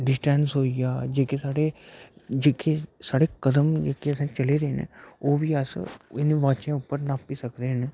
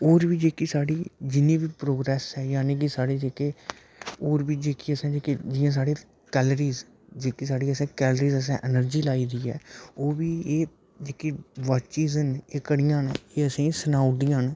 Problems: background sounds at intervals